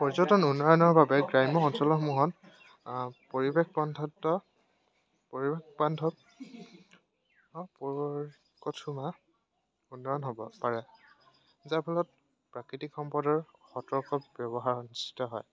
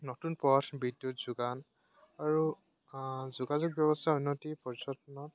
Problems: none marked